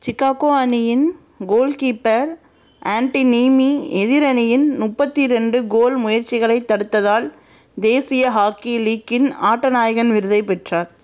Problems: none marked